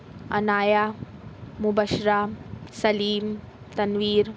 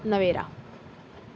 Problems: constant background noise